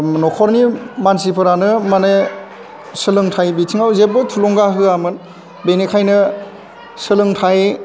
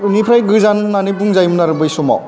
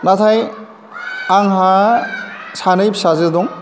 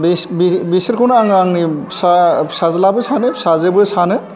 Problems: none marked